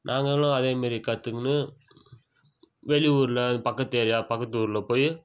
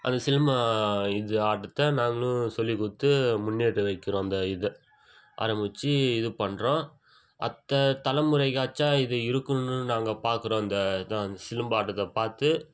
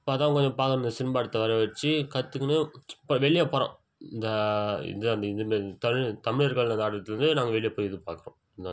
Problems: constant background noise